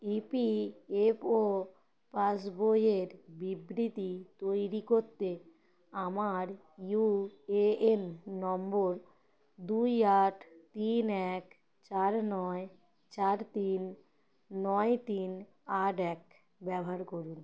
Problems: constant background noise